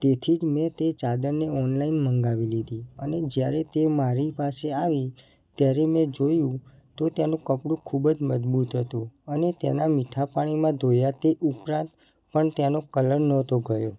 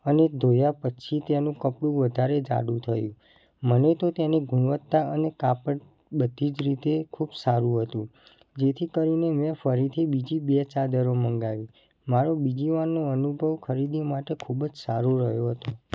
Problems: constant background noise